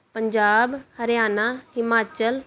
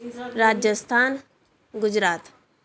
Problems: none marked